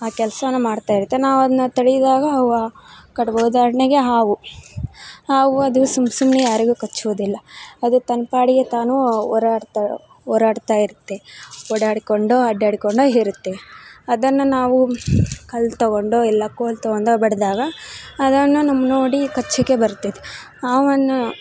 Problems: background sounds at intervals